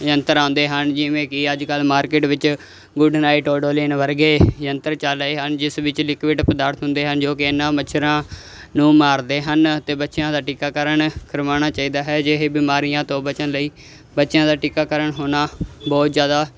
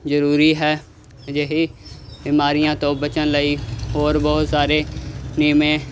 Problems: constant background noise